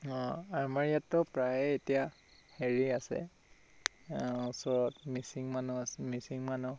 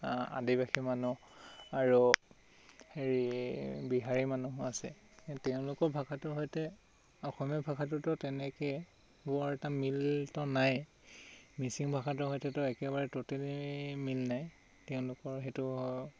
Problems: constant background noise